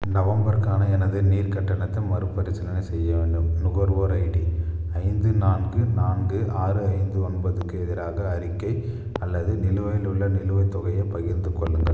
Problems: constant background noise